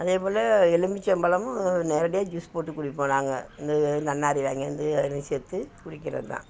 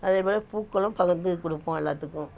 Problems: none marked